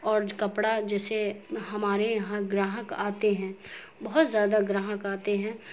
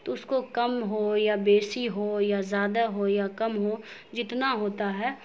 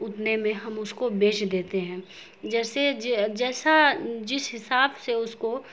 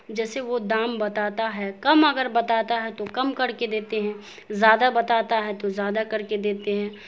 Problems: constant background noise